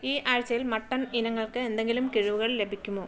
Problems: background sounds at intervals, low volume